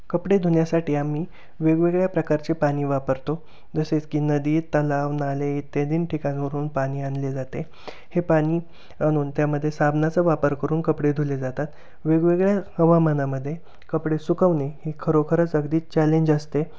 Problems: none marked